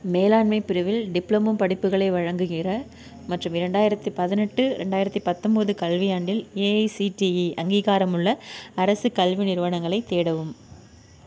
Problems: none marked